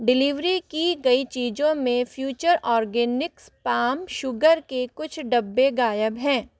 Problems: none marked